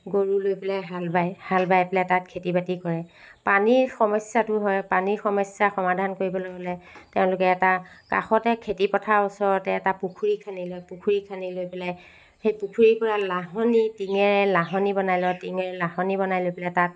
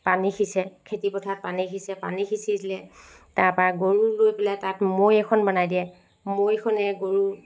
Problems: background sounds at intervals